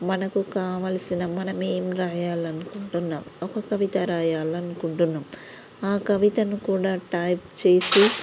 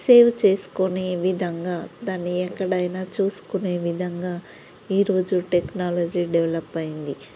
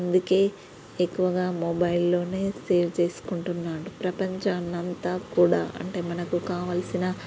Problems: background sounds at intervals